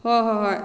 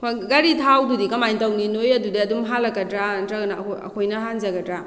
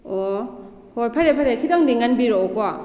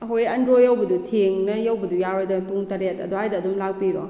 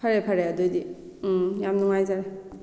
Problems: background conversations at intervals